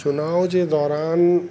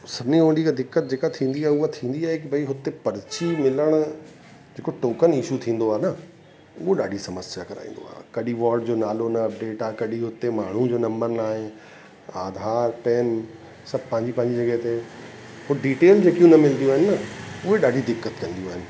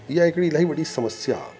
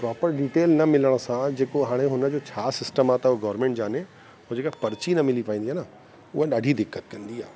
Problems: constant background noise, echo